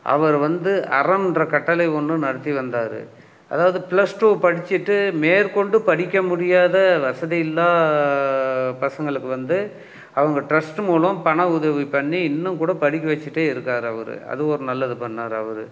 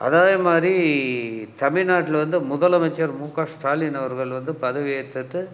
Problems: none marked